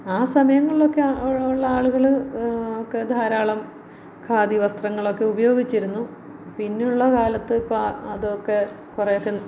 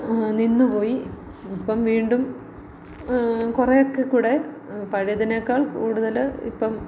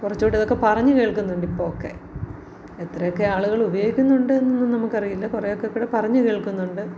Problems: none marked